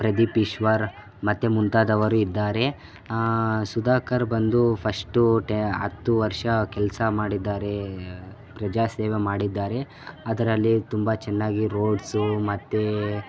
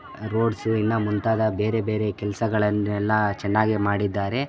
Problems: constant background noise, background conversations at intervals